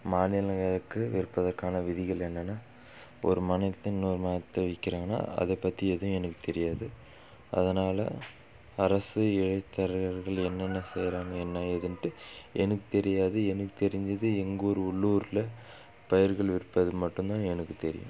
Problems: background sounds at intervals